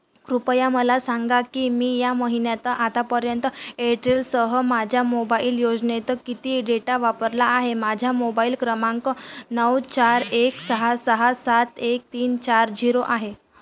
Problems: none marked